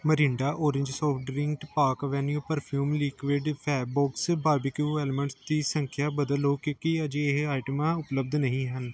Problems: background sounds at intervals